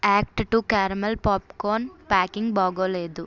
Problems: none marked